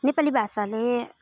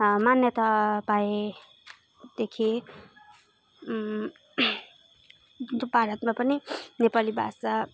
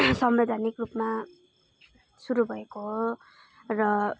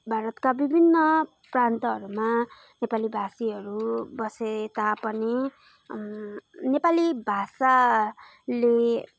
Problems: none marked